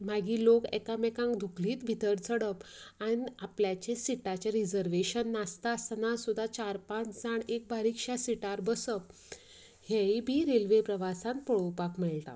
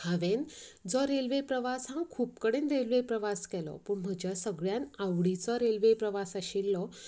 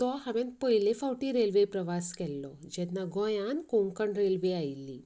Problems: none marked